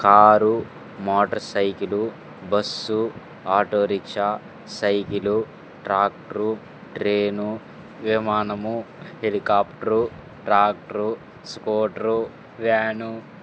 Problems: constant background noise